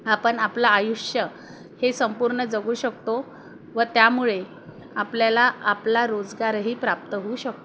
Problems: background sounds at intervals